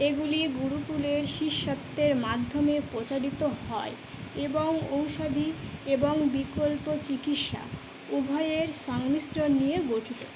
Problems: none marked